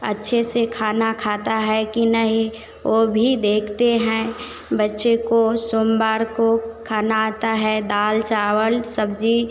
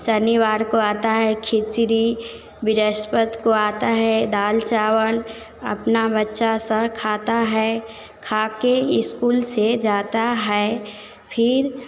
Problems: constant background noise